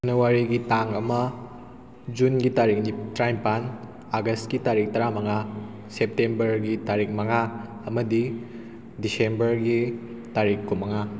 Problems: background sounds at intervals